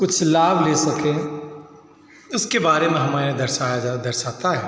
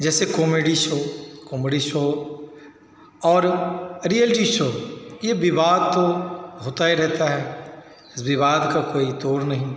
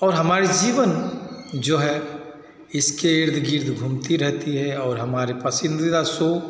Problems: background sounds at intervals